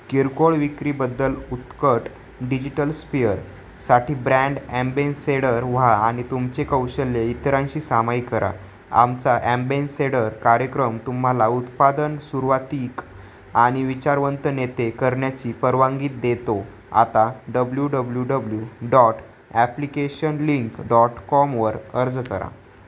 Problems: none marked